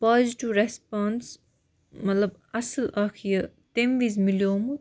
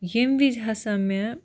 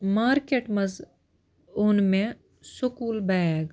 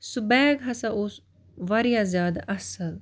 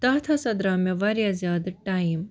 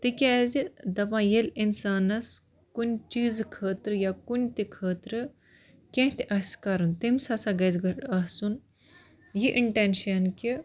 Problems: background sounds at intervals